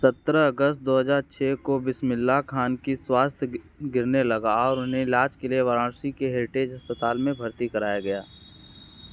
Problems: constant background noise